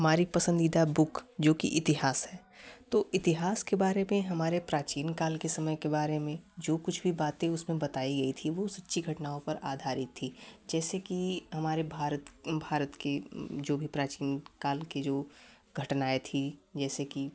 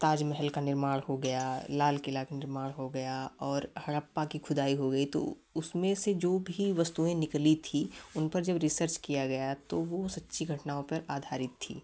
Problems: none marked